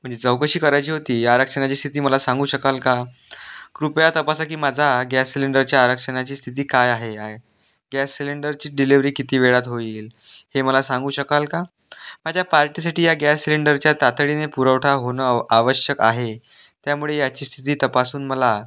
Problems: none marked